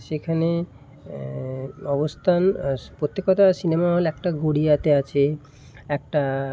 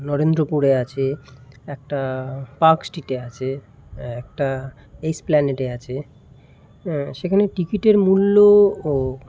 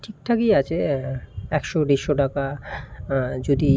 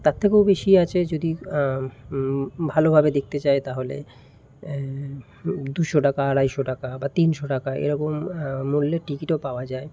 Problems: constant background noise